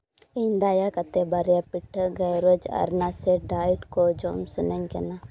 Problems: none marked